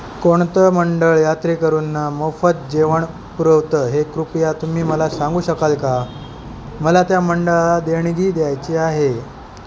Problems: constant background noise